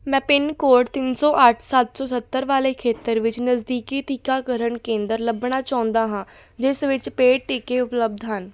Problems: background sounds at intervals